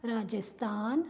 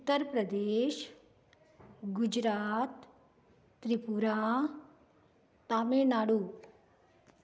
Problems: none marked